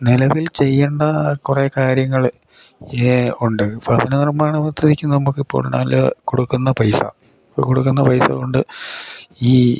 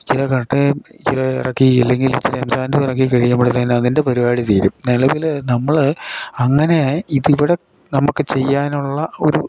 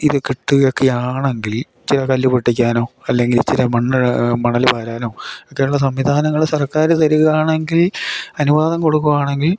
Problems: none marked